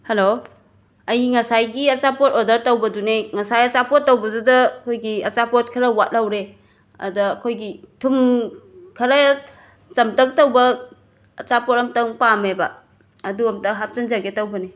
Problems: none marked